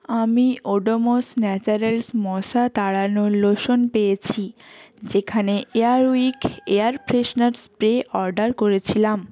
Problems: background sounds at intervals